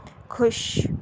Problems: background sounds at intervals